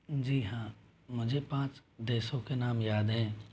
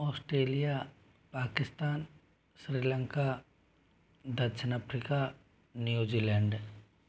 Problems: none marked